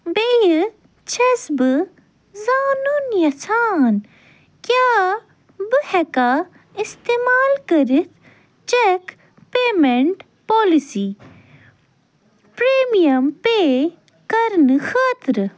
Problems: none marked